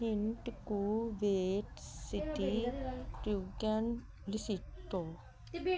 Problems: background sounds at intervals